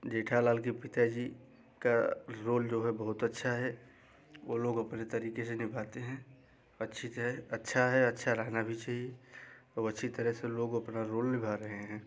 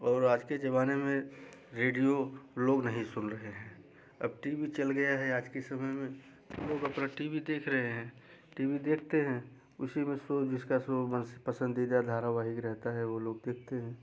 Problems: background sounds at intervals